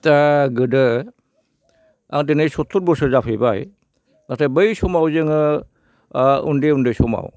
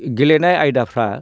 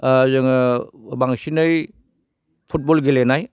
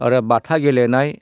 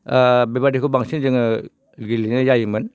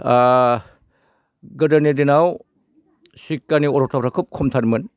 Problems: none marked